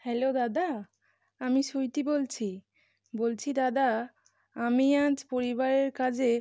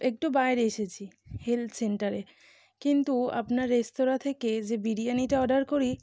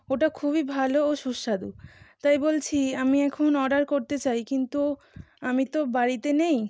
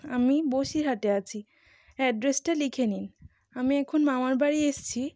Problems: none marked